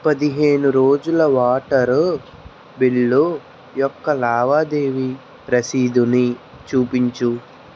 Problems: constant background noise